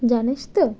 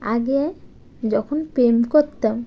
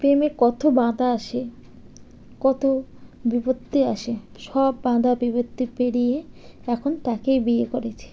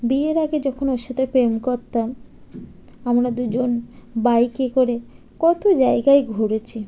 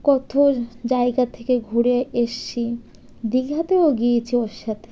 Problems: constant background noise